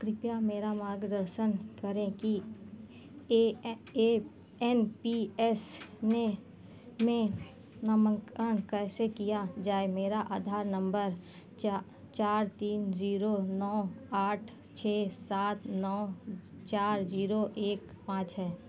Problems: constant background noise